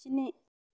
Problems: none marked